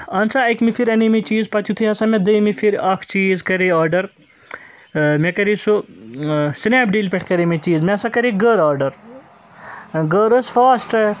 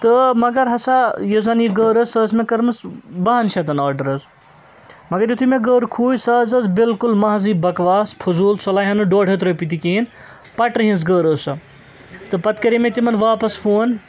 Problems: constant background noise, background conversations at intervals